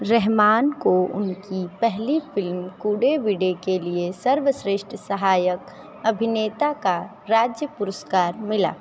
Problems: none marked